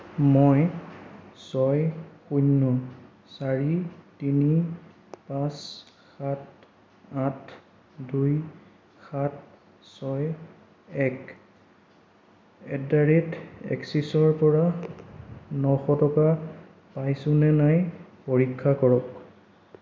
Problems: low volume